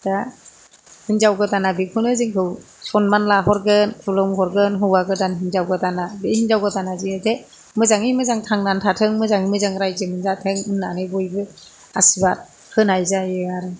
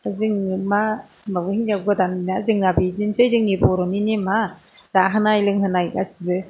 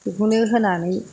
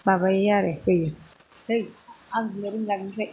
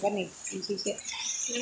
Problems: none marked